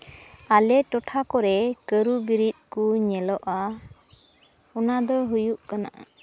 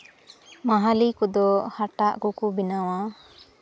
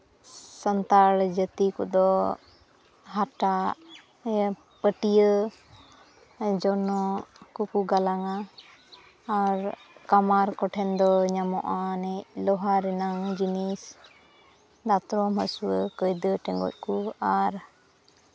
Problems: background sounds at intervals, background conversations at intervals